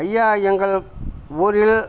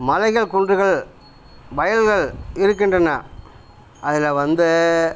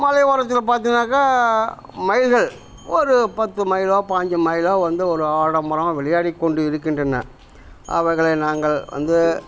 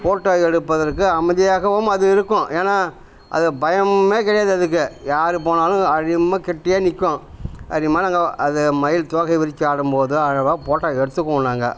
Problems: none marked